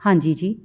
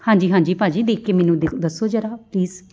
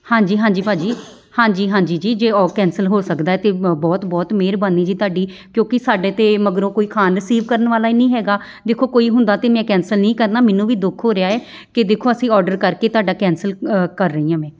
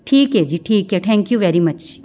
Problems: background sounds at intervals